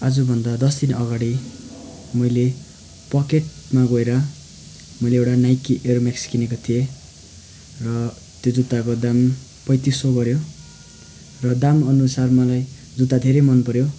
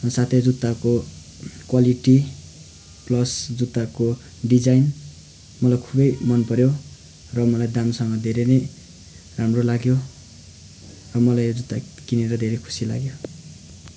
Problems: none marked